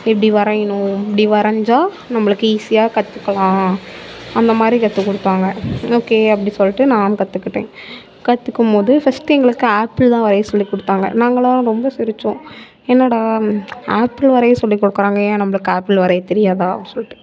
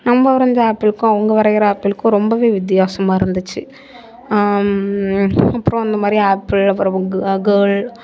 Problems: background conversations at intervals